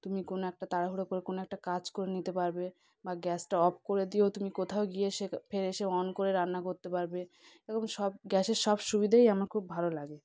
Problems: background conversations at intervals